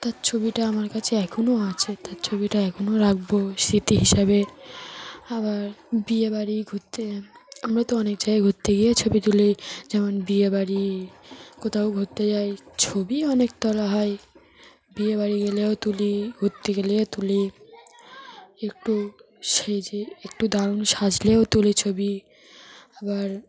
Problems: continuous background conversations